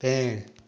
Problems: constant background noise, echo